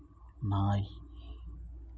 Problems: low volume